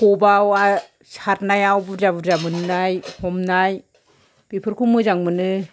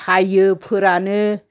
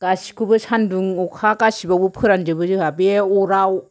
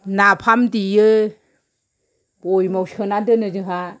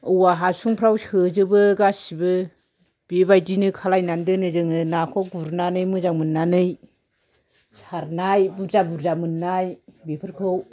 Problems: background sounds at intervals